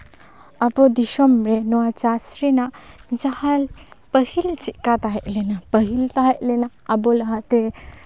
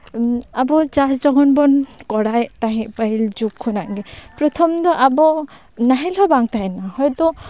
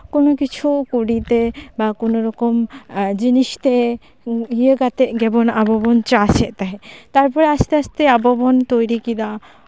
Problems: background conversations at intervals